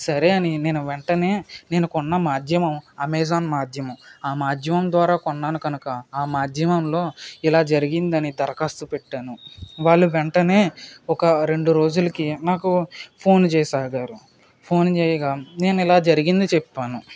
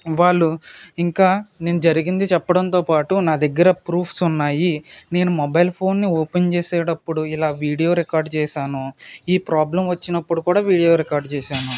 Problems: constant background noise